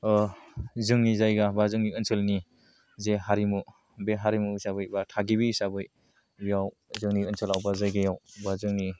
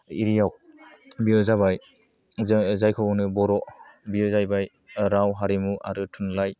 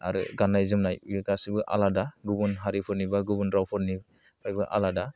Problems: low volume